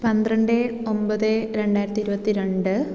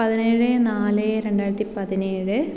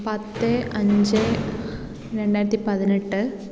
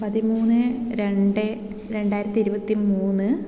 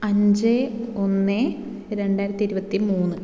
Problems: background sounds at intervals